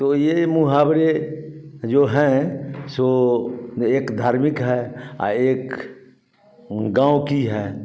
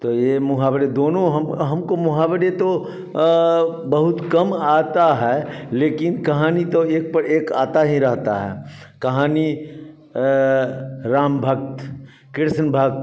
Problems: none marked